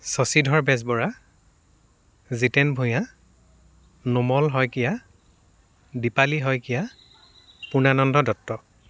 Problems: none marked